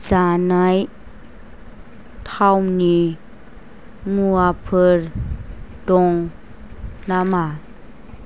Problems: none marked